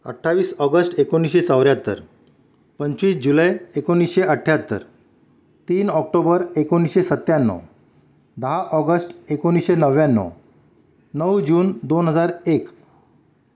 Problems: background sounds at intervals